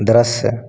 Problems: echo